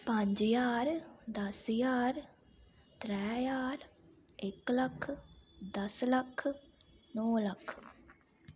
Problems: low volume